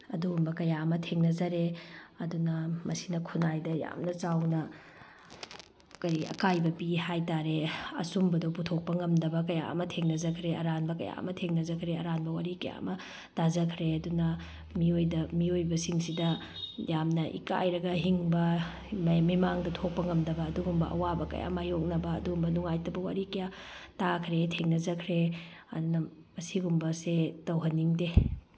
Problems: none marked